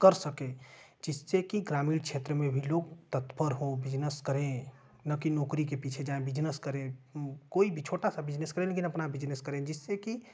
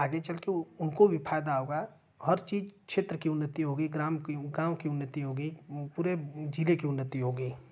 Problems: none marked